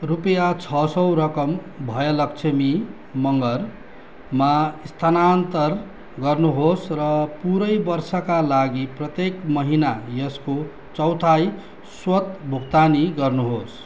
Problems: background sounds at intervals